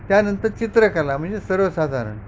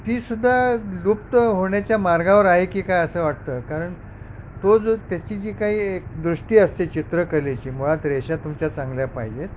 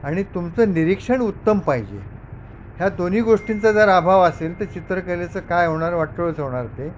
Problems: constant background noise